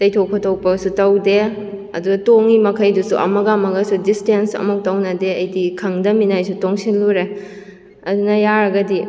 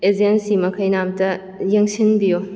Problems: echo